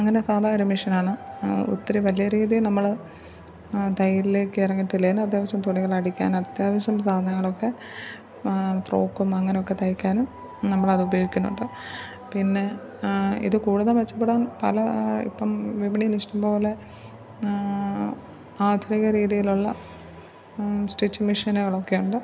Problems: low volume